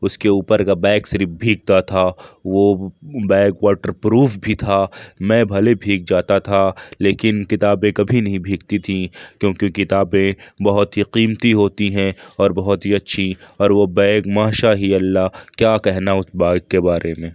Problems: none marked